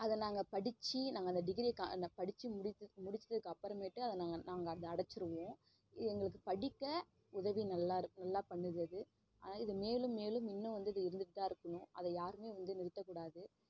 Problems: none marked